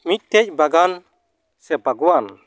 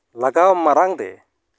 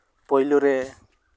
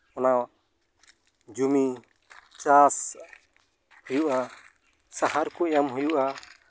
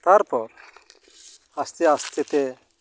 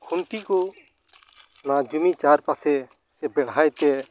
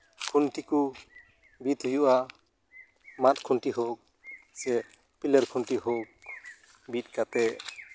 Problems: none marked